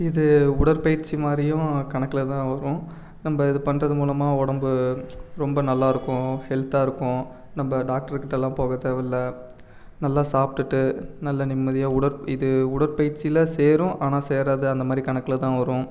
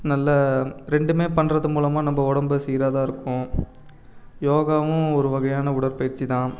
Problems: background sounds at intervals